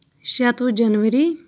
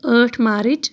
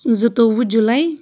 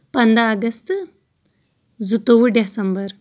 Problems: background sounds at intervals